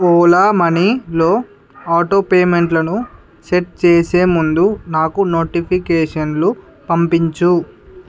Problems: constant background noise, background conversations at intervals